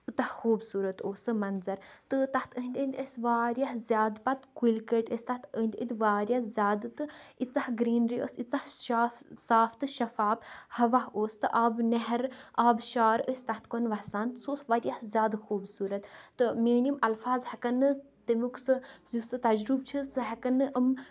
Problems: none marked